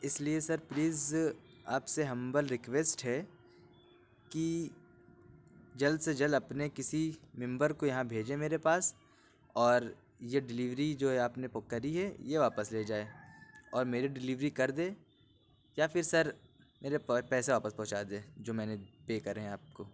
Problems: constant background noise